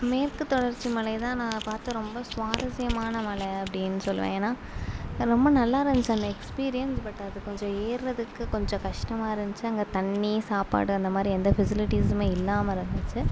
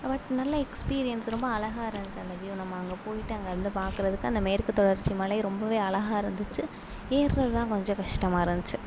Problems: low volume